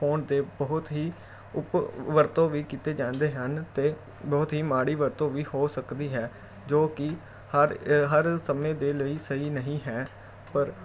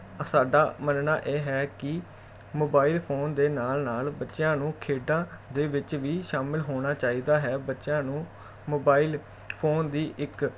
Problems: background sounds at intervals